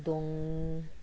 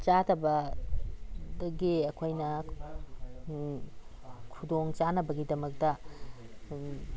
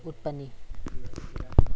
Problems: constant background noise, background conversations at intervals